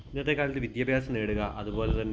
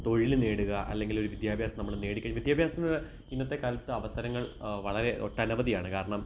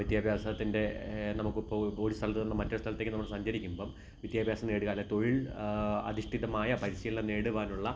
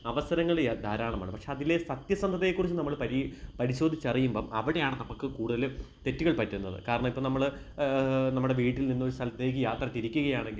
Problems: background sounds at intervals